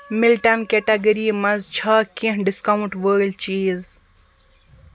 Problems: constant background noise